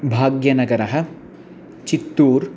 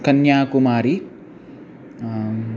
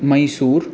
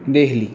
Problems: constant background noise